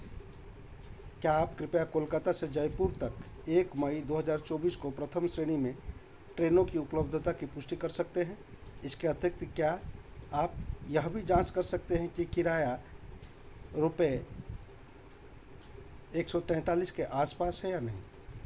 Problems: constant background noise